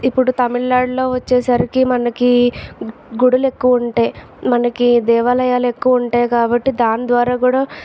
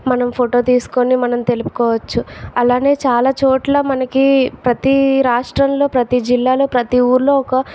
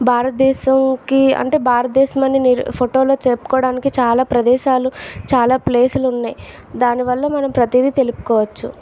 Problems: constant background noise, background conversations at intervals